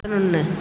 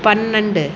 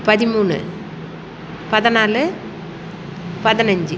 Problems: constant background noise